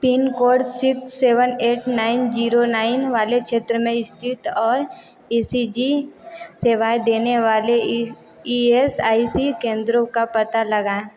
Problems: continuous background conversations